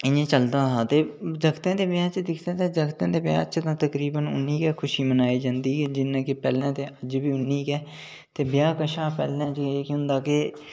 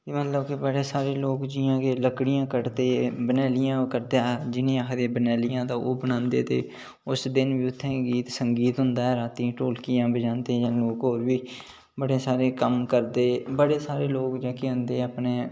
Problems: none marked